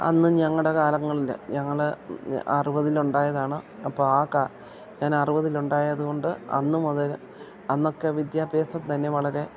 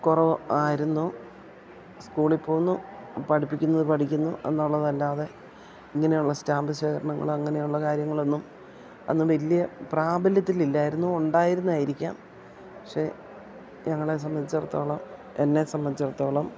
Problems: background sounds at intervals